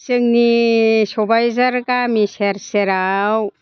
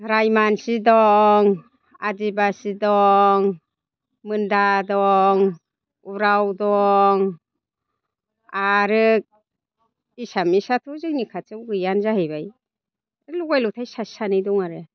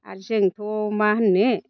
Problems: constant background noise